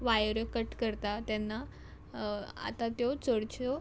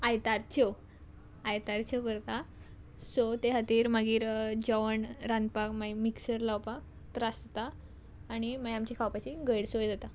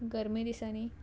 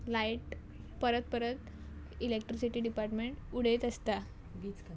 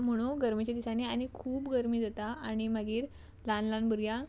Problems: background sounds at intervals